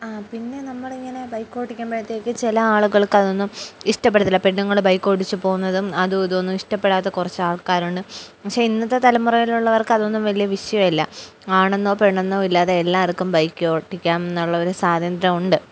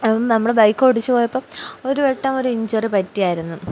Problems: none marked